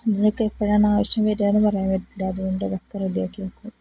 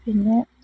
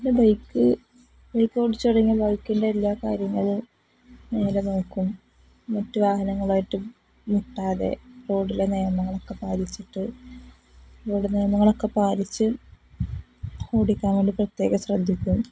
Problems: none marked